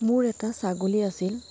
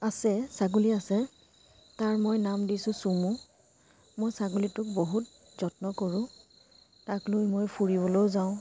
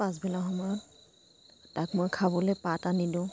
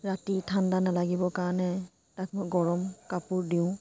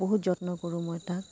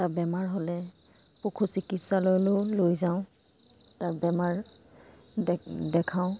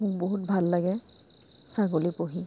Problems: constant background noise